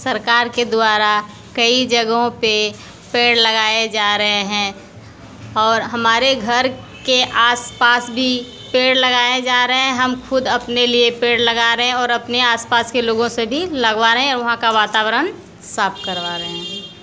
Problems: constant background noise